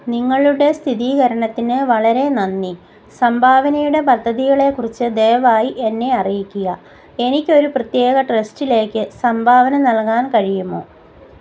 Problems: constant background noise